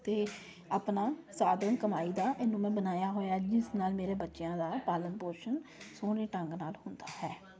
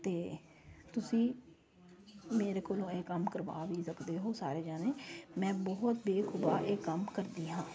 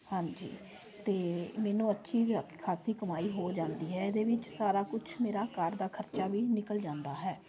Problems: constant background noise